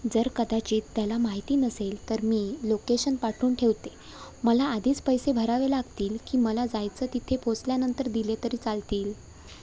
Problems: none marked